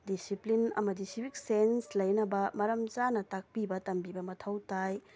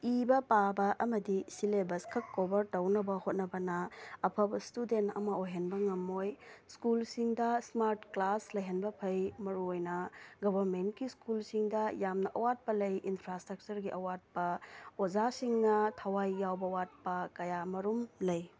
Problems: background sounds at intervals